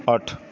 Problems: none marked